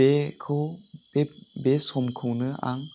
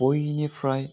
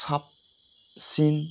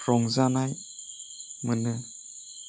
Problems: constant background noise